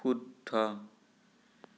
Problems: none marked